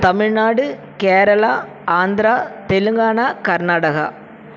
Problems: constant background noise